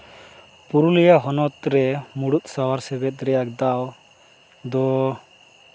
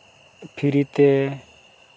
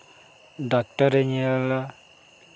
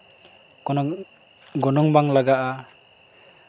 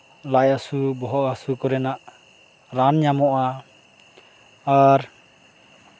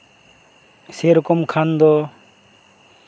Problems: none marked